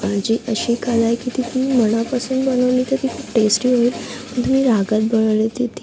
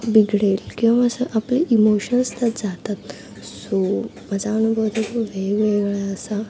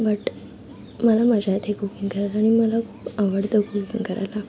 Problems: constant background noise, background conversations at intervals